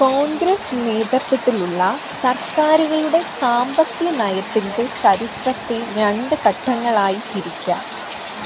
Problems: constant background noise